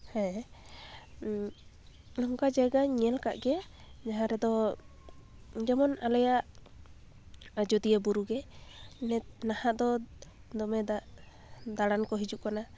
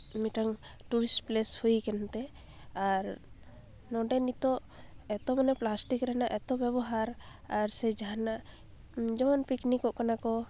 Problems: background sounds at intervals, low volume